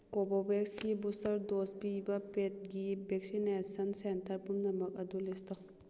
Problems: none marked